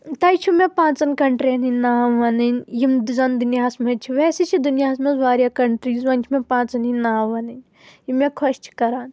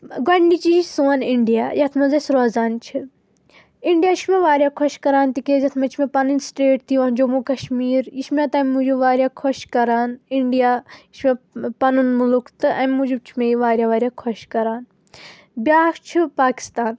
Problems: constant background noise